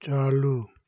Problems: none marked